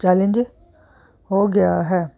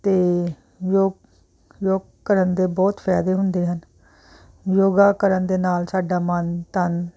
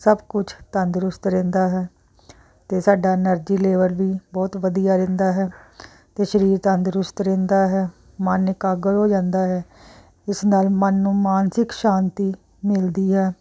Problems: background conversations at intervals